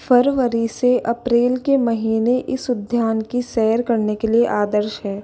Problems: none marked